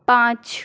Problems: none marked